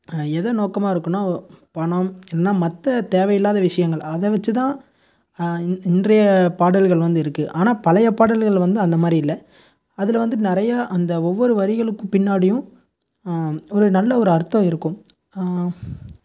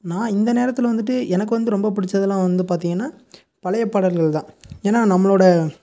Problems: none marked